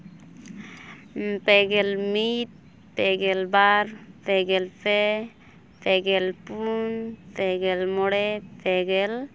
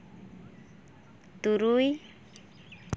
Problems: none marked